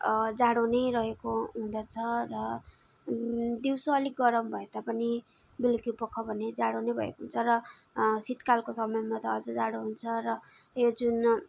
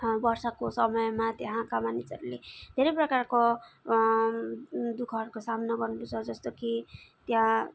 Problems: background sounds at intervals